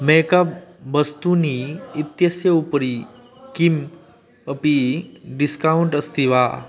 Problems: constant background noise